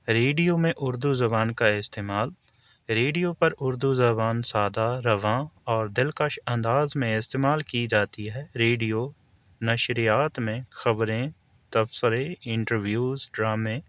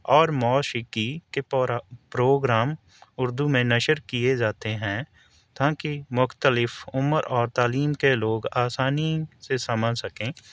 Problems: none marked